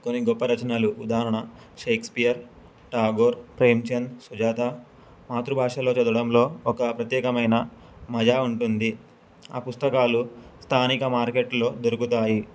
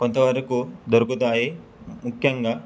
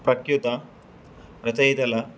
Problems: none marked